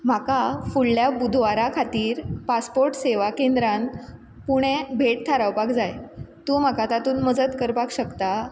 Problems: none marked